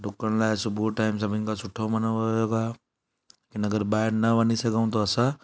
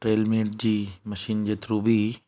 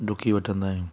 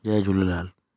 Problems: none marked